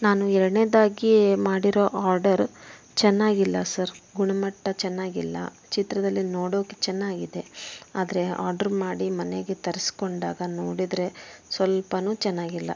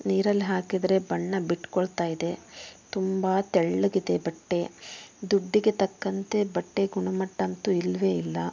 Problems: background sounds at intervals